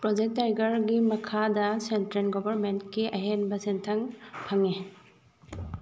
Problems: none marked